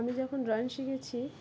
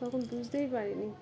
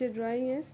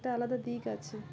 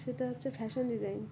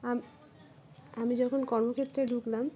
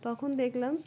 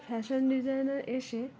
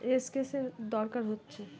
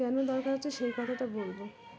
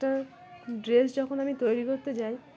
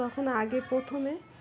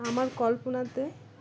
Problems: constant background noise, continuous background conversations